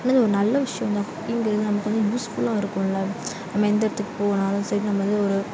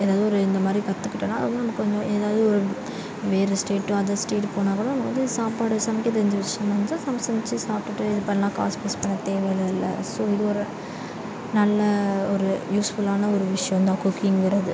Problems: none marked